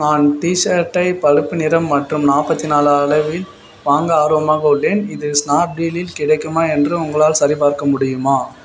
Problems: background sounds at intervals